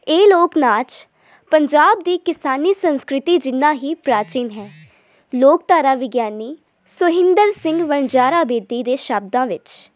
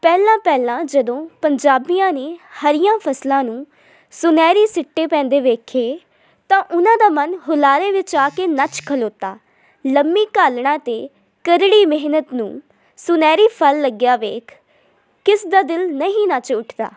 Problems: background sounds at intervals